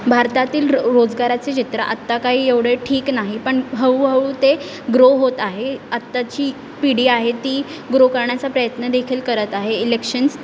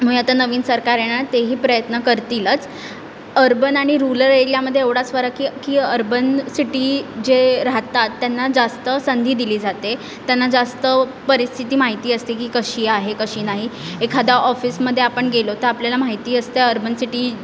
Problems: constant background noise